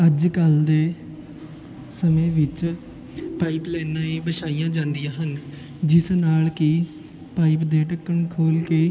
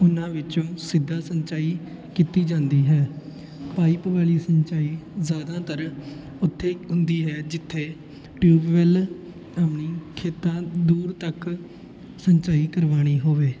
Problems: constant background noise, continuous background conversations